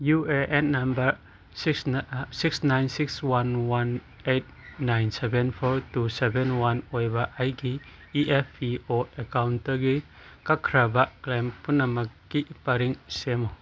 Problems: background sounds at intervals